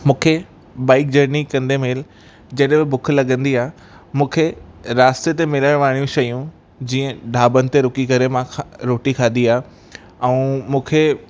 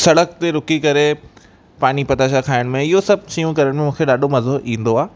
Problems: constant background noise, echo